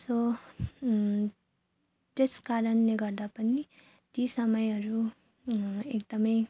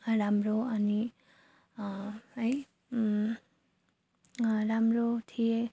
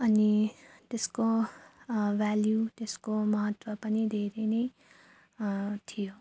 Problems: none marked